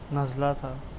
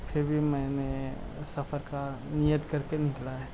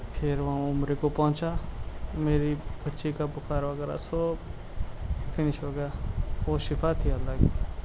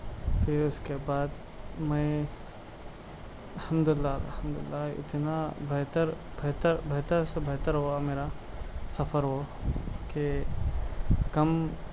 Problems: constant background noise, low volume